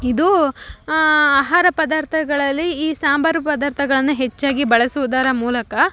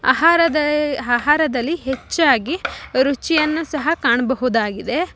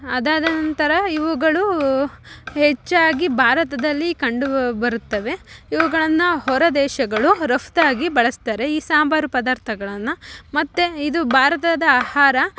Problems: background sounds at intervals